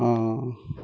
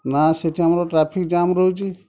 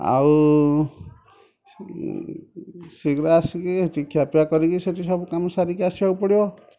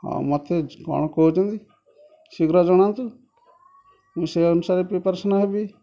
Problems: constant background noise, continuous background conversations